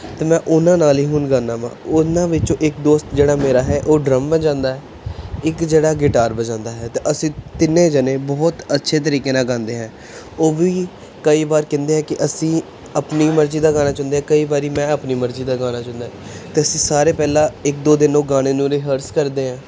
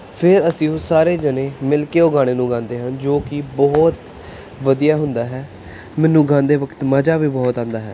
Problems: none marked